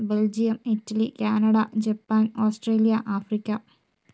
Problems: none marked